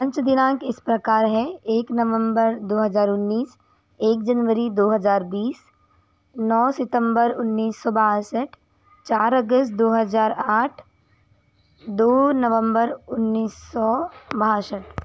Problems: background conversations at intervals